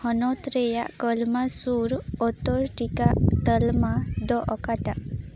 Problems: background sounds at intervals, background conversations at intervals